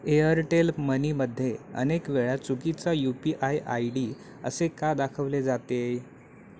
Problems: none marked